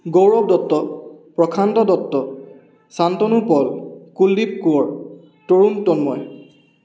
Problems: constant background noise, echo